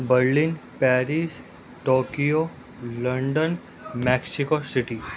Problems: constant background noise